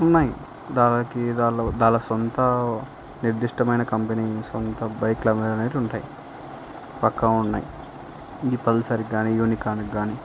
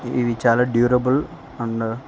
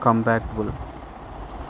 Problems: none marked